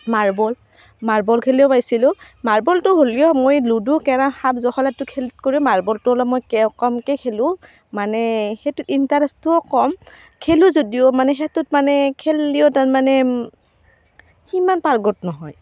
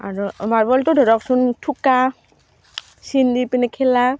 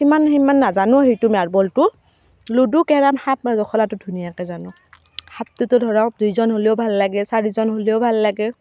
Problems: constant background noise